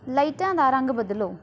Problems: background sounds at intervals